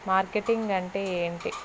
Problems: constant background noise